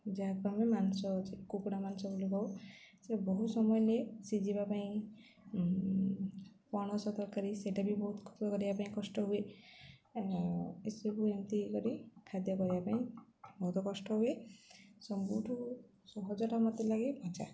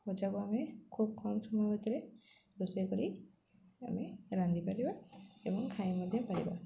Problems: constant background noise, continuous background conversations